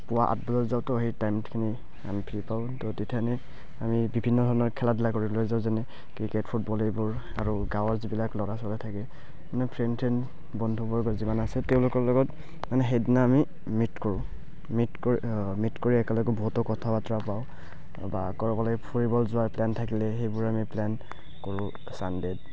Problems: constant background noise, background conversations at intervals, low volume